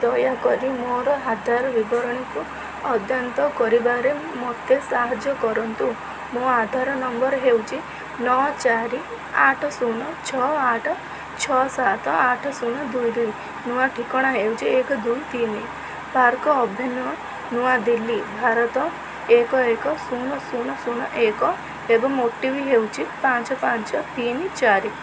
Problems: constant background noise